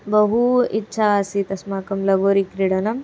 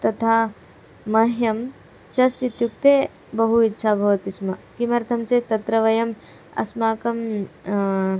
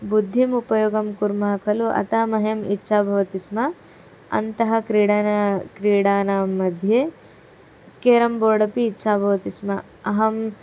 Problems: none marked